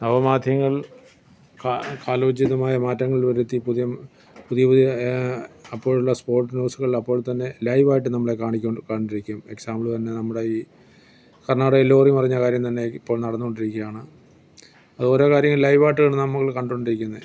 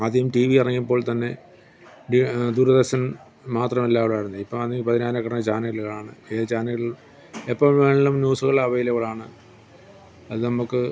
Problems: background sounds at intervals